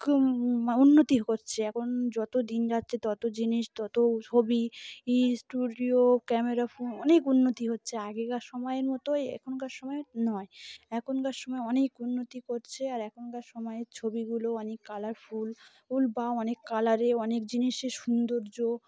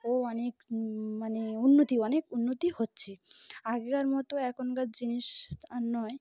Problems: constant background noise